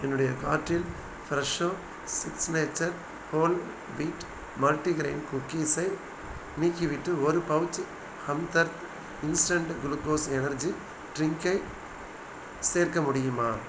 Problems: constant background noise